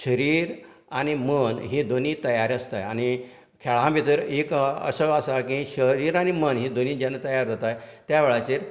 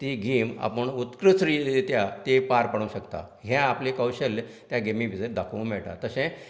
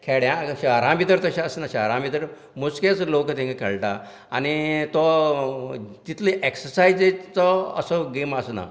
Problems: none marked